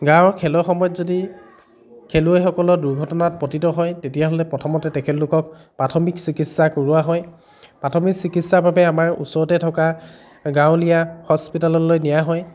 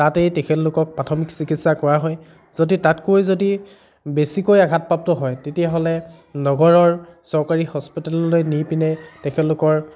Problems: continuous background conversations